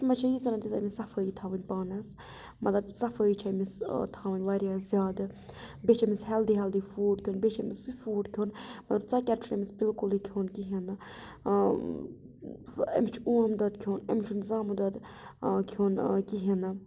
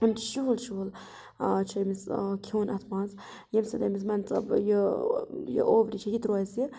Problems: none marked